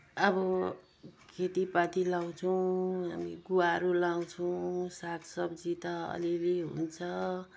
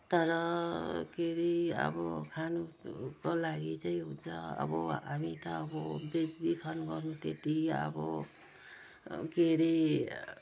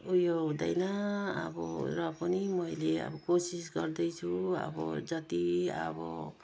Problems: none marked